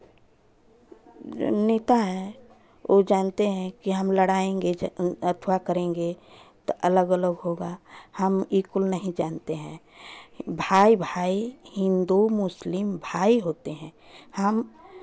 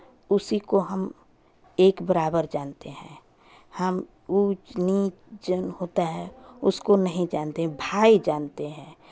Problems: background sounds at intervals, continuous background conversations